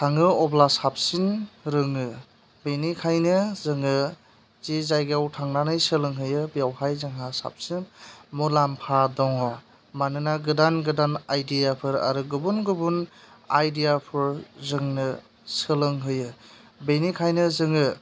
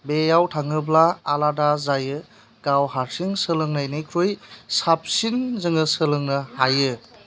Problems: constant background noise